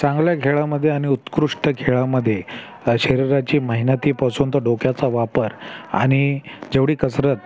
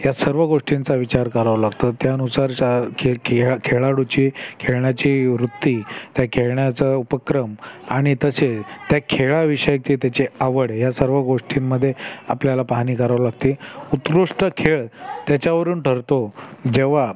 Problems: constant background noise, continuous background conversations